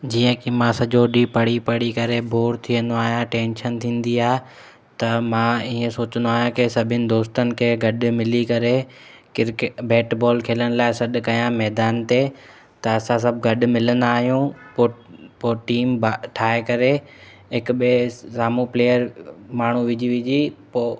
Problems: constant background noise, echo